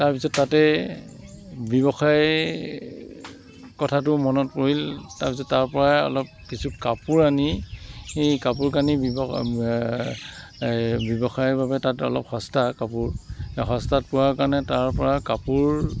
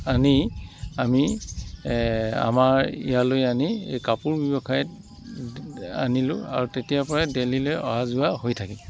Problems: constant background noise